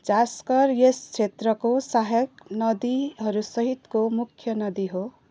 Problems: background sounds at intervals